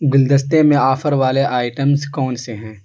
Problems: constant background noise